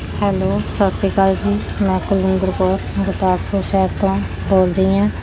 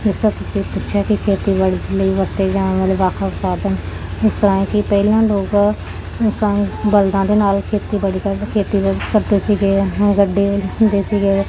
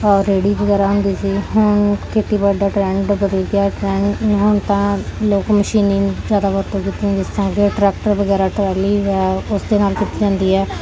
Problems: constant background noise